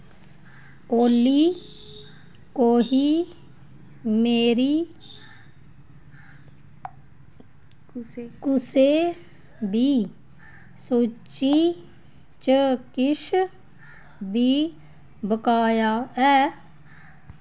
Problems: none marked